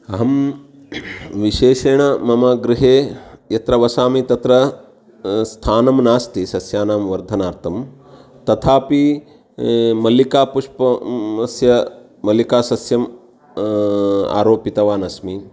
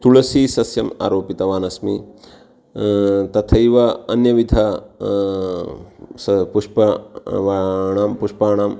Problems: none marked